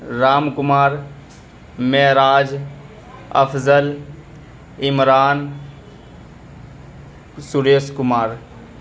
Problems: constant background noise